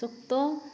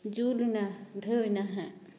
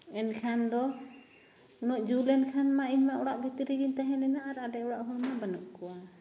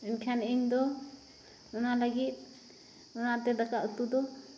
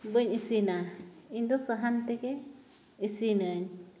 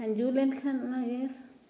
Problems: background sounds at intervals